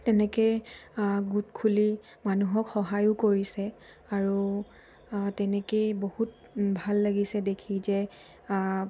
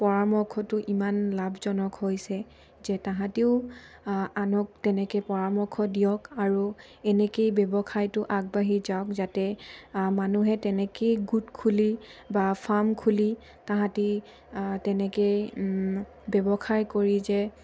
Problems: none marked